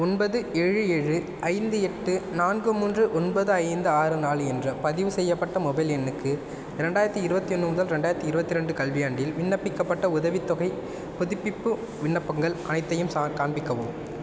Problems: constant background noise